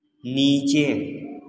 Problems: none marked